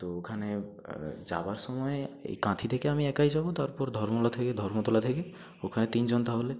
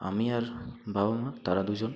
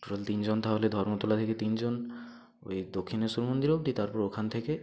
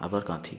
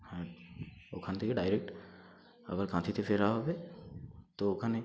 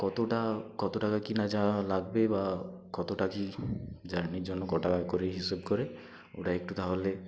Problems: constant background noise